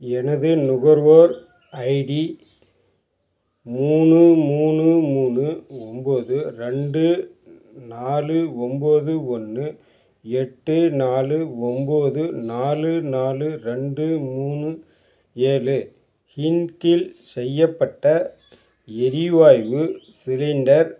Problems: background sounds at intervals